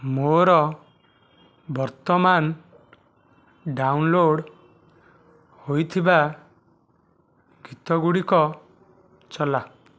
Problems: none marked